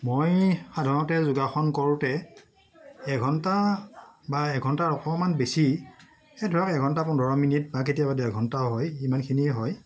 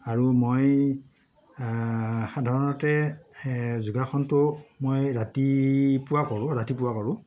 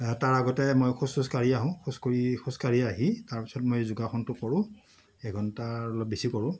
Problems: none marked